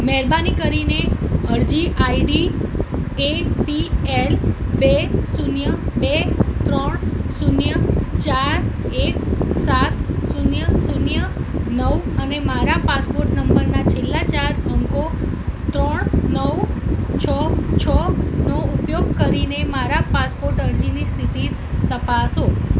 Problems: constant background noise